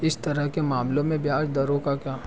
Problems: continuous background conversations